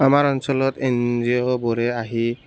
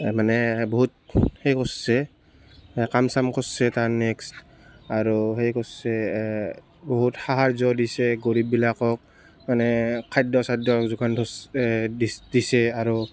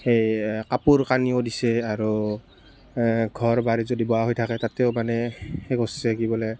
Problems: constant background noise